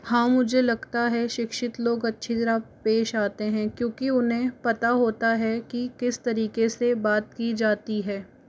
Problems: constant background noise